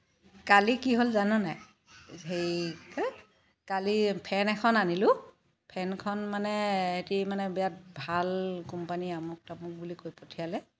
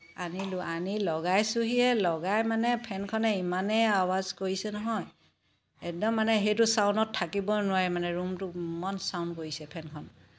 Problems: background sounds at intervals